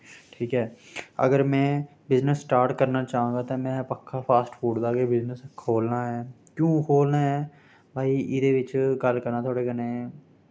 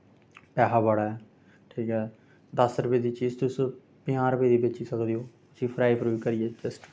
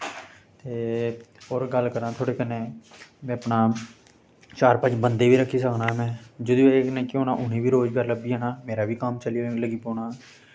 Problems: constant background noise